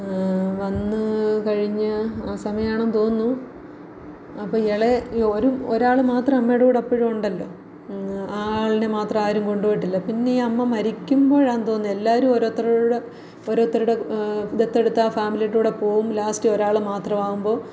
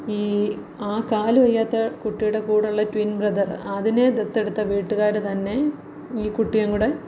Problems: none marked